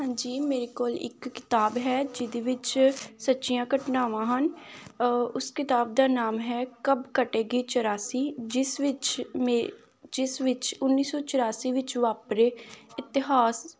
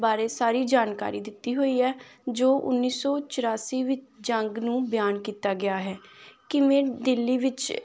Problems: none marked